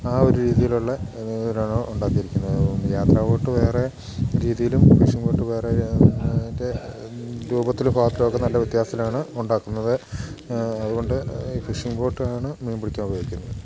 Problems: background sounds at intervals